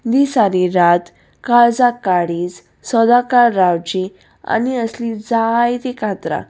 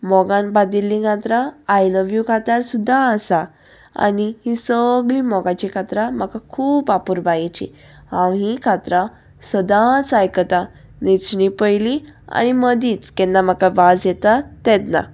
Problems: none marked